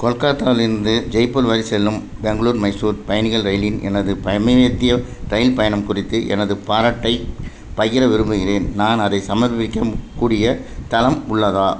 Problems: none marked